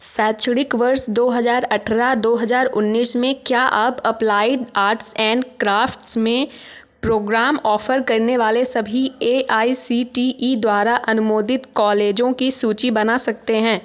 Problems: constant background noise